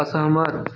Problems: background sounds at intervals